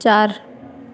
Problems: constant background noise